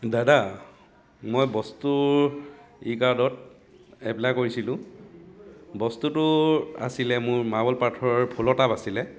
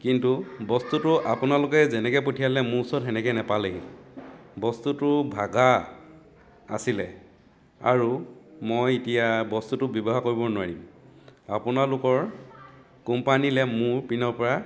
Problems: continuous background conversations